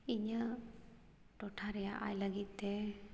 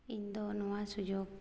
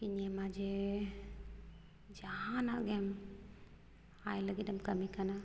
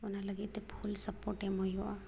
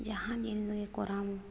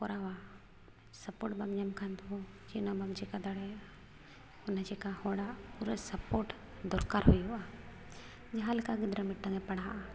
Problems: none marked